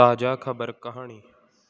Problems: background sounds at intervals